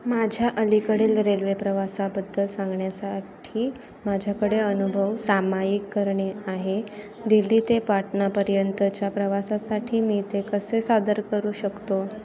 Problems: constant background noise, continuous background conversations